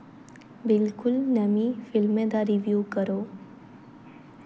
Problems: none marked